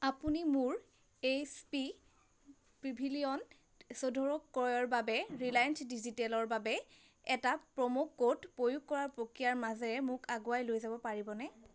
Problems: constant background noise